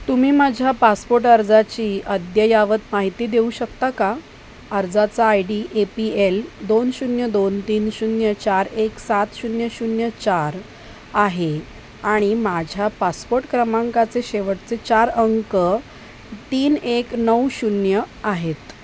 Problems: constant background noise